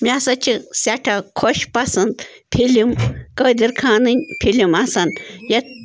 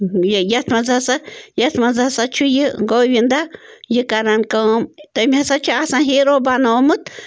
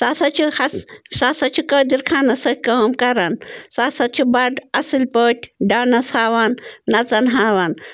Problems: constant background noise